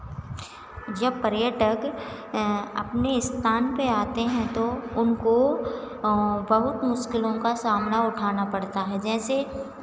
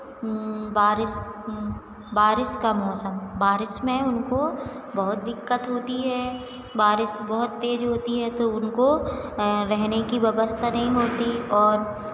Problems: none marked